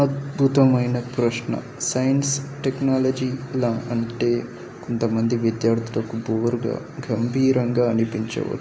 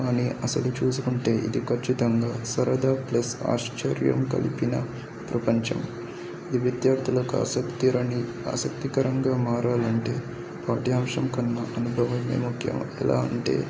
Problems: constant background noise, background conversations at intervals, low volume